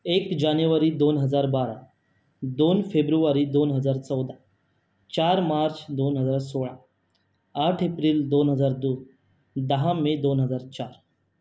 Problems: none marked